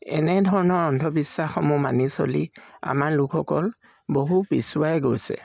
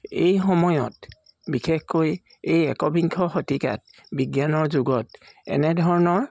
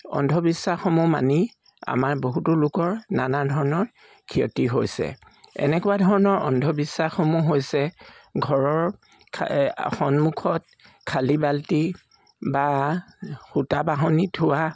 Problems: constant background noise